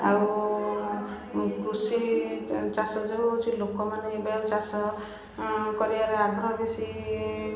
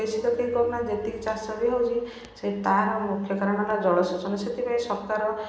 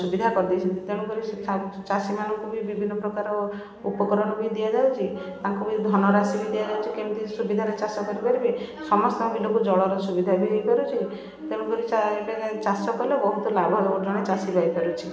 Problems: background sounds at intervals, continuous background conversations